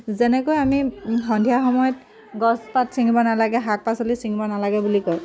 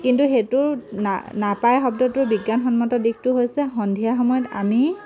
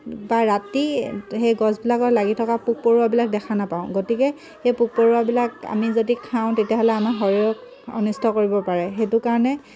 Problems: constant background noise